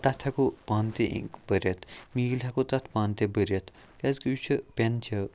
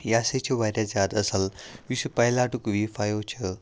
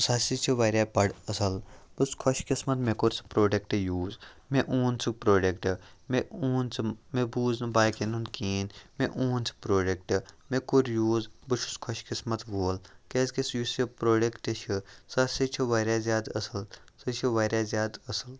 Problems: background sounds at intervals